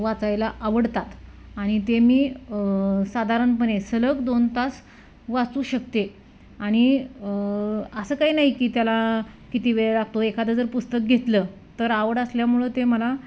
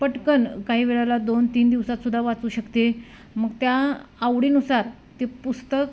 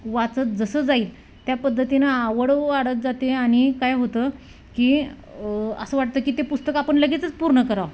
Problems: none marked